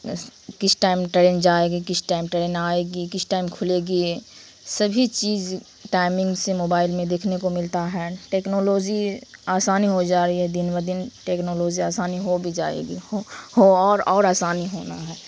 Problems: constant background noise